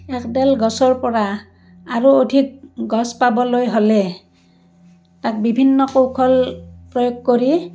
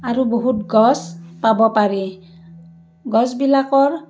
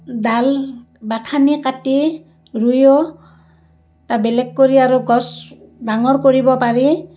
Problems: none marked